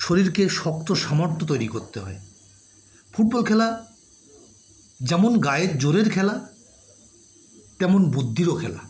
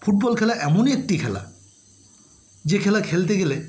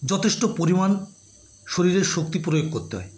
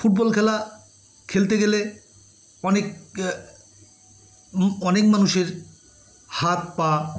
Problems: background sounds at intervals